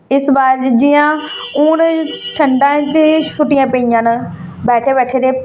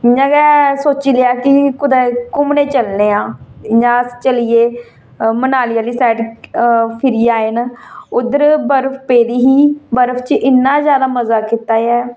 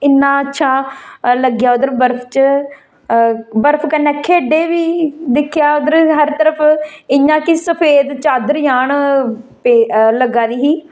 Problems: none marked